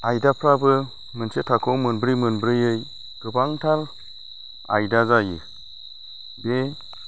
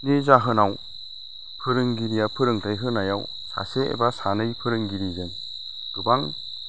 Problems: constant background noise